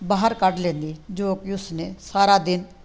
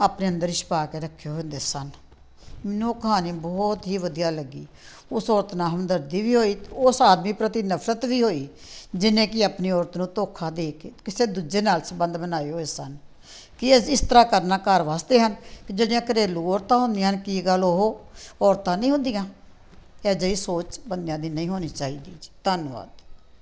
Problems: background sounds at intervals